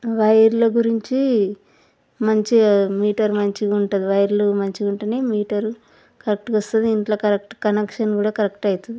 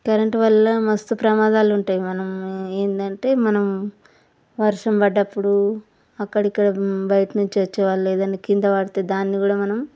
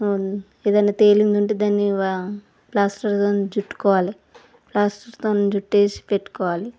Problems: none marked